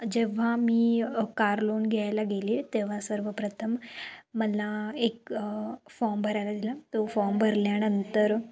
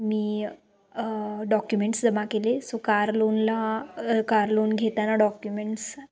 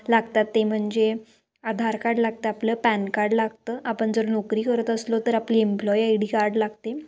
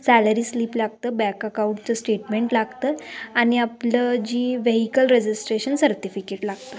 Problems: background conversations at intervals